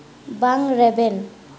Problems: echo